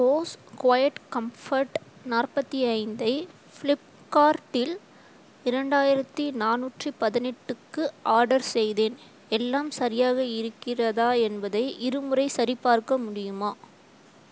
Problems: constant background noise